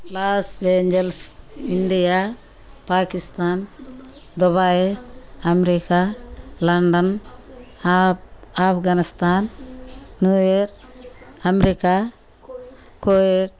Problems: none marked